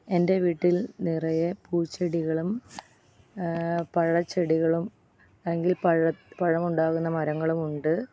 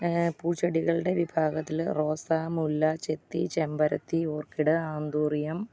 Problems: none marked